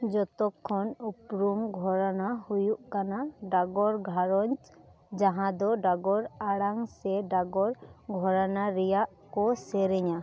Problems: background sounds at intervals, background conversations at intervals